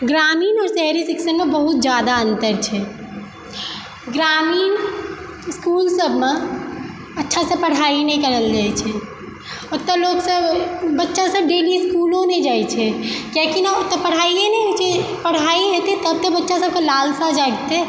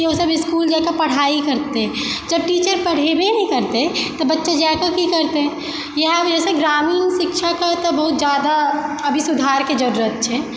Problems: constant background noise